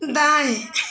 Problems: constant background noise